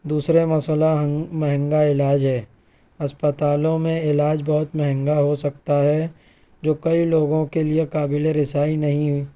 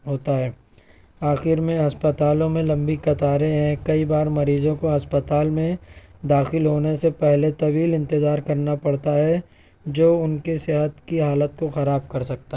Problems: none marked